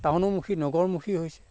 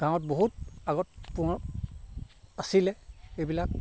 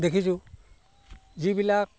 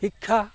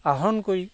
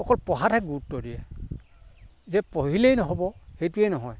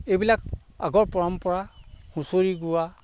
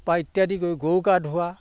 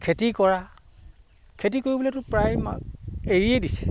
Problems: background sounds at intervals